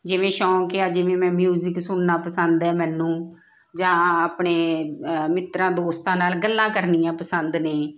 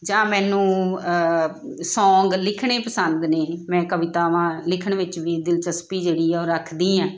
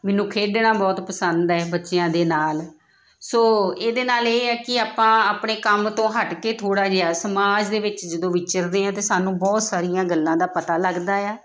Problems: none marked